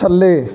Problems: continuous background conversations